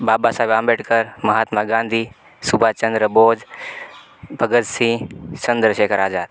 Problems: constant background noise